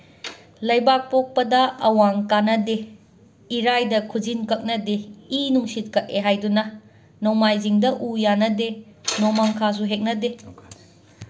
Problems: constant background noise, background conversations at intervals